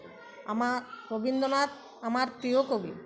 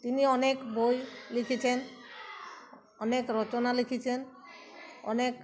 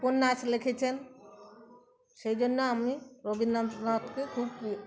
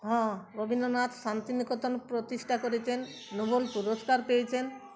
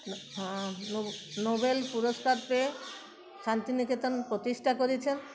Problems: none marked